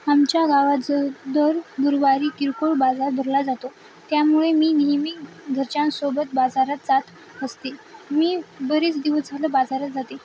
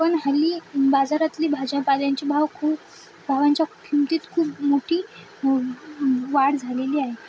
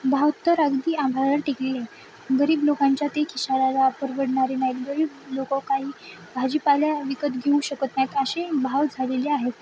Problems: constant background noise, background conversations at intervals